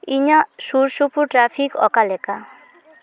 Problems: background conversations at intervals